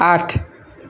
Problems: none marked